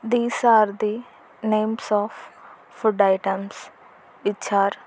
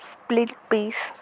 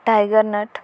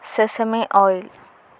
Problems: constant background noise